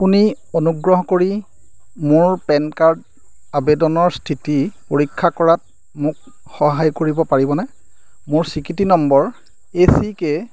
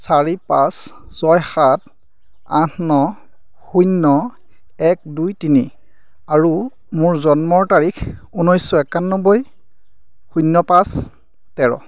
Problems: constant background noise